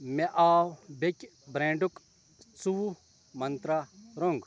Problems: constant background noise, background conversations at intervals